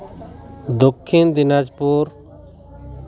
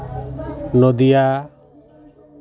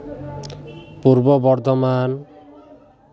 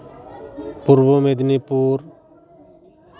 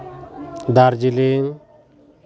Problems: constant background noise, continuous background conversations